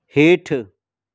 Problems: none marked